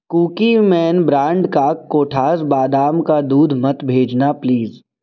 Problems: none marked